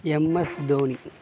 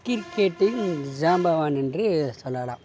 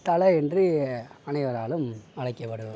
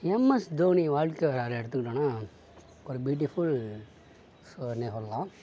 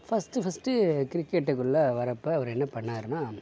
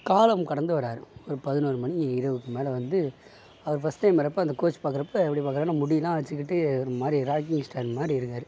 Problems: background sounds at intervals, low volume